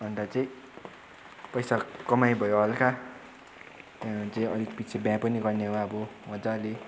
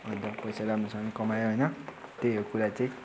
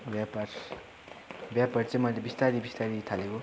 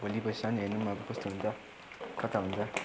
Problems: constant background noise, continuous background conversations